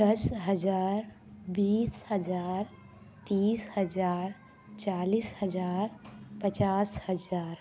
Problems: background sounds at intervals, background conversations at intervals